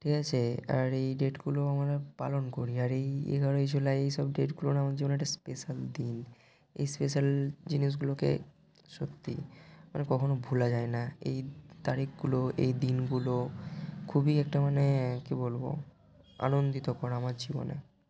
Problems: constant background noise